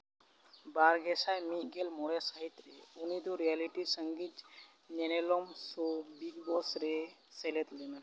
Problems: background sounds at intervals